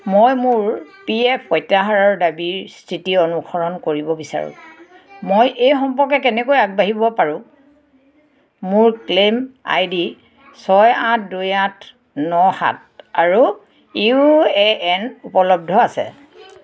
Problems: continuous background conversations